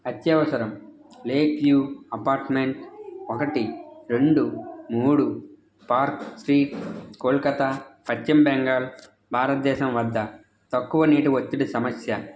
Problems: constant background noise, background conversations at intervals